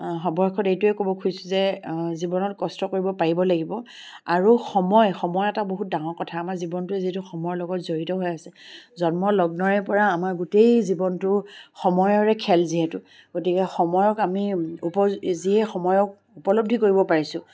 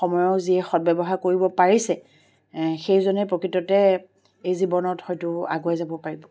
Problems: background sounds at intervals